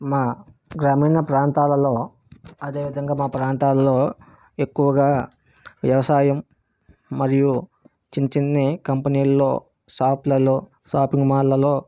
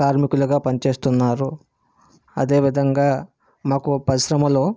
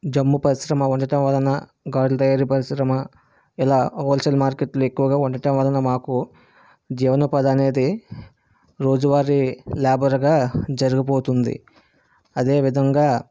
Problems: none marked